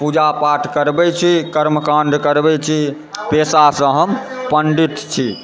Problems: background sounds at intervals, continuous background conversations